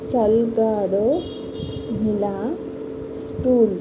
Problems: constant background noise